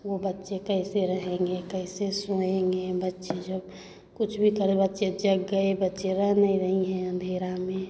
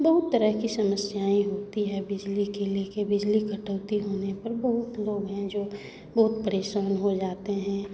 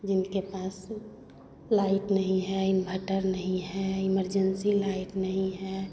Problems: constant background noise, continuous background conversations